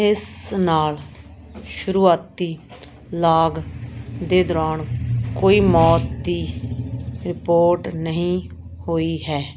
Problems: constant background noise